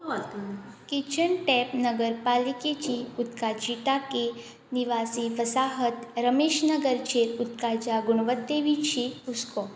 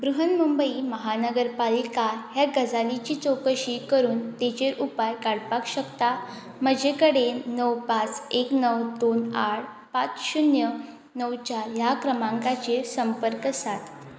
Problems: background sounds at intervals